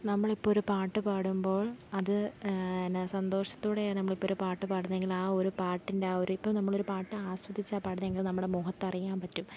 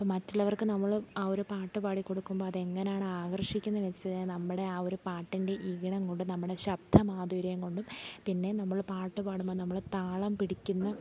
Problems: none marked